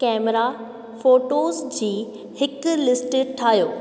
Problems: constant background noise, echo